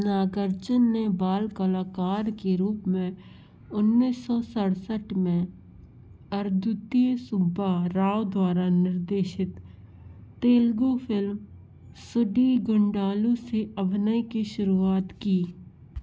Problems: none marked